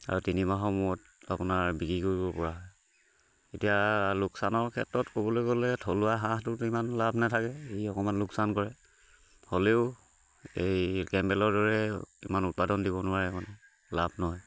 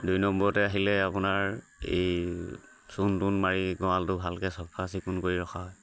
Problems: constant background noise, background conversations at intervals